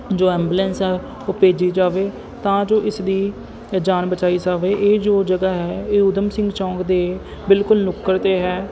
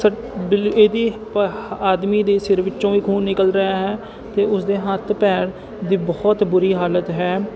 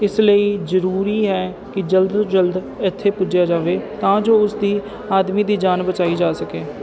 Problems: none marked